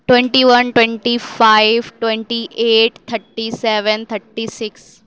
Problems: none marked